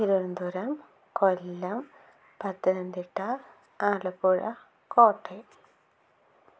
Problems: low volume